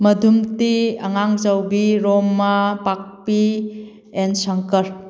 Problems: none marked